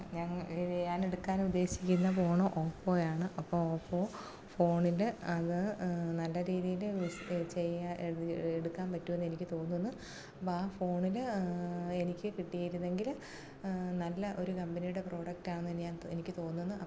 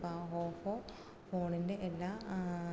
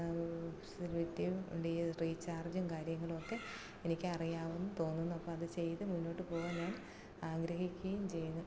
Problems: low volume